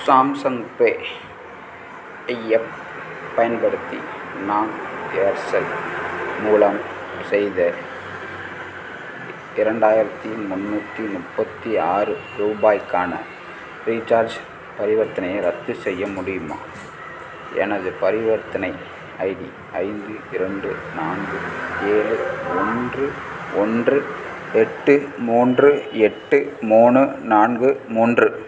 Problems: background sounds at intervals